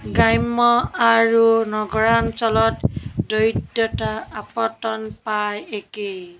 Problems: constant background noise, continuous background conversations